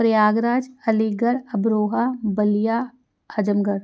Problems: none marked